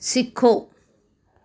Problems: none marked